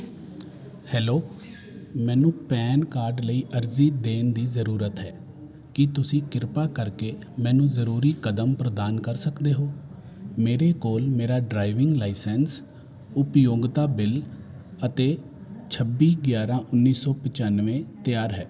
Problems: constant background noise